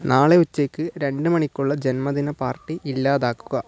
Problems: none marked